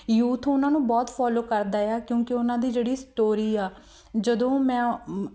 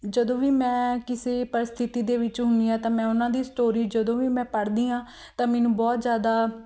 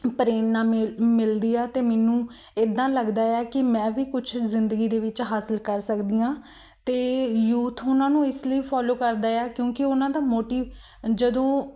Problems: background sounds at intervals